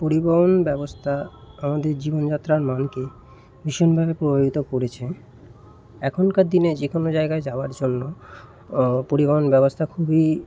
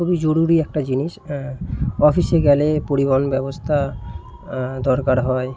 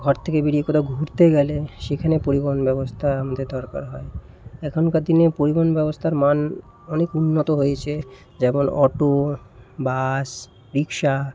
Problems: constant background noise